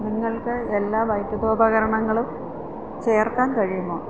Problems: constant background noise